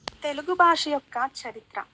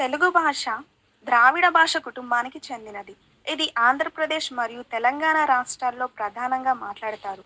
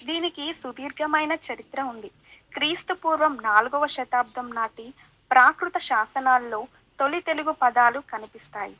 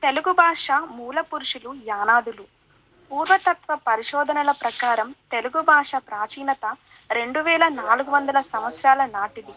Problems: background conversations at intervals